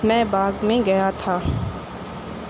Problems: constant background noise